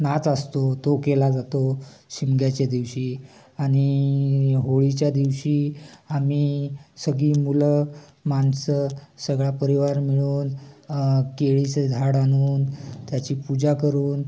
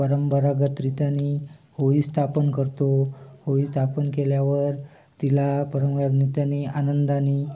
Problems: constant background noise, continuous background conversations